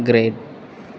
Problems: none marked